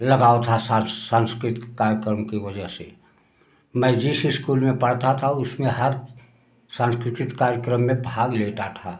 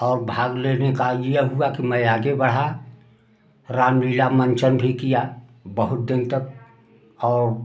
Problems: background sounds at intervals